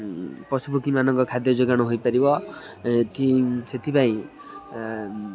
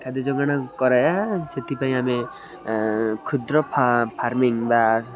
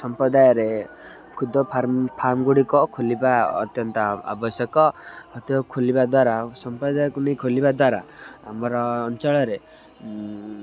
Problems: constant background noise, continuous background conversations